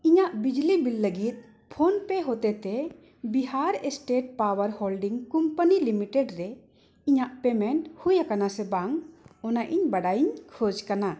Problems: echo